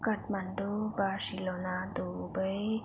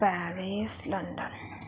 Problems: constant background noise